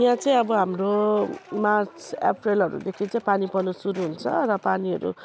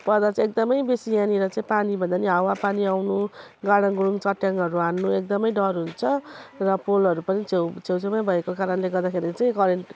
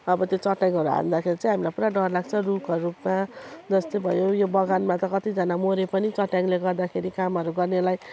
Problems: background sounds at intervals